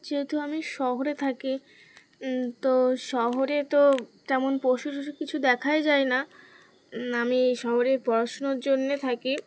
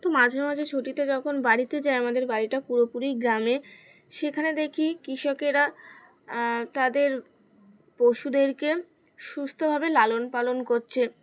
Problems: none marked